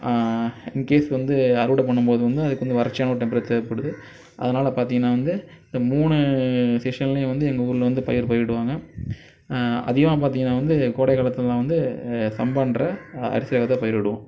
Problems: none marked